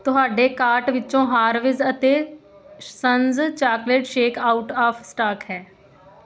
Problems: continuous background conversations